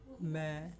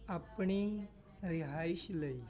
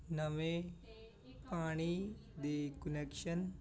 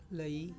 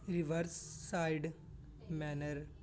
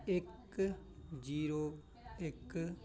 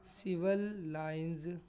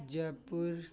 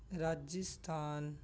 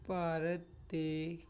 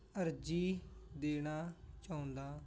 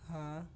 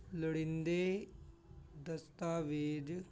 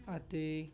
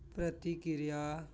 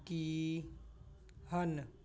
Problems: background conversations at intervals